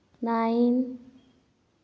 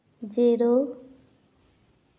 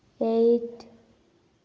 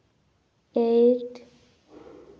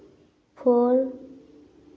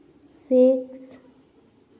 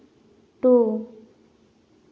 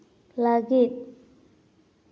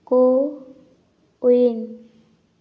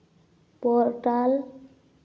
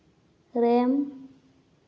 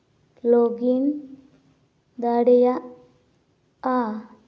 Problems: background sounds at intervals